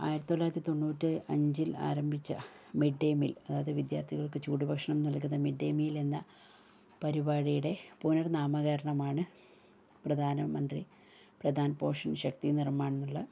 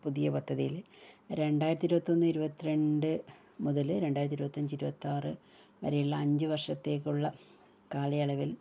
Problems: low volume